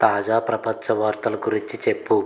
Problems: none marked